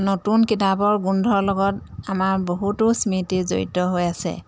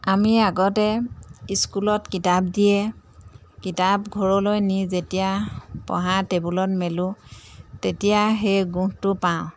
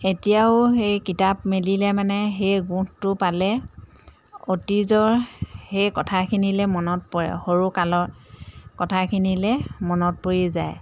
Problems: background sounds at intervals, background conversations at intervals